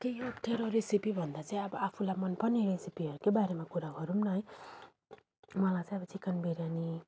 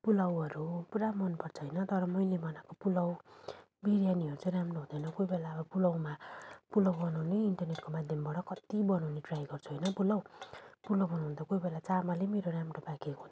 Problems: background sounds at intervals